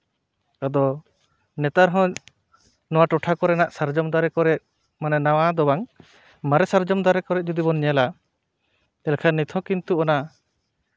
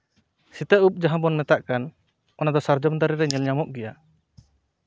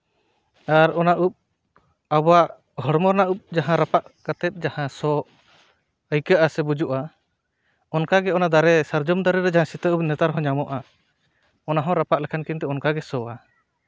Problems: none marked